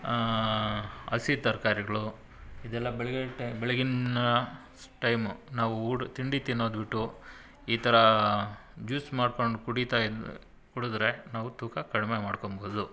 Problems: none marked